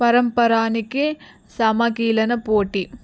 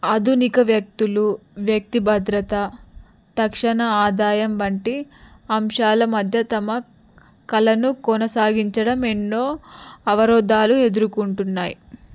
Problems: background sounds at intervals